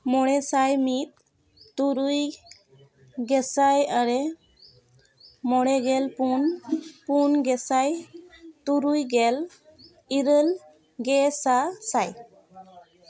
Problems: continuous background conversations